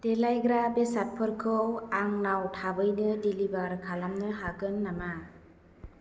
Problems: none marked